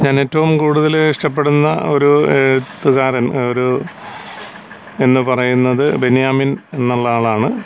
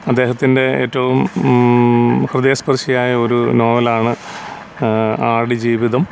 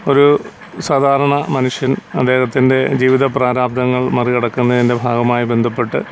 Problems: constant background noise